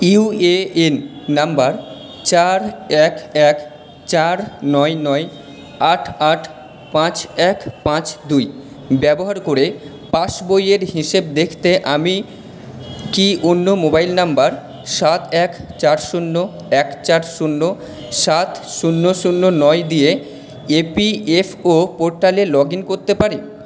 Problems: background sounds at intervals